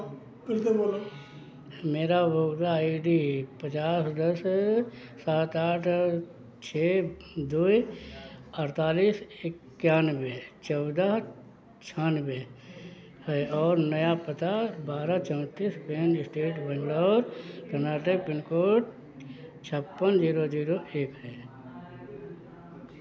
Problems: background sounds at intervals